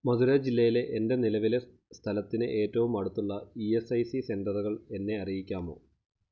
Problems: none marked